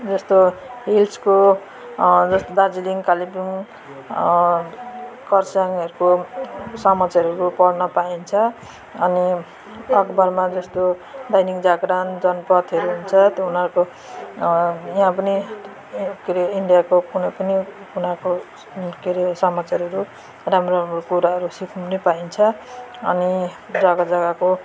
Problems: constant background noise